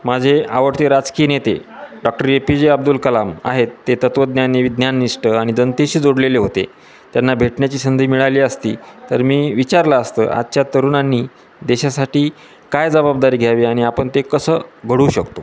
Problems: constant background noise, continuous background conversations